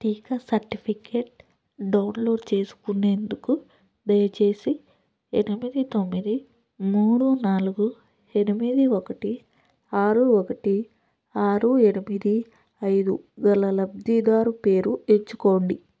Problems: none marked